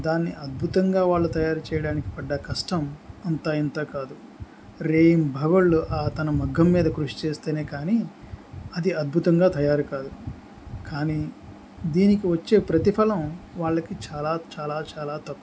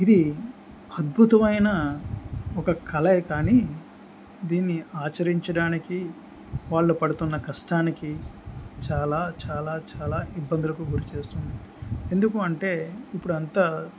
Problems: background sounds at intervals